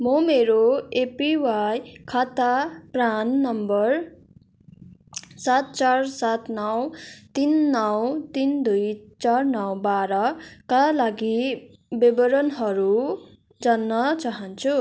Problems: none marked